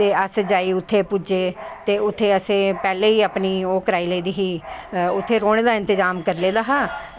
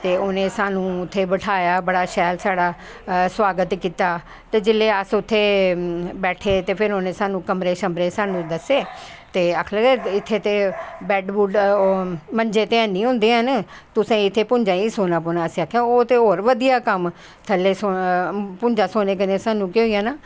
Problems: none marked